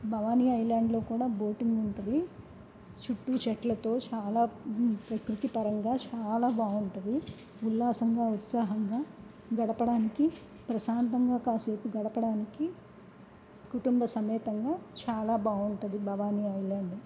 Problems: background sounds at intervals, low volume